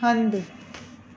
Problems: constant background noise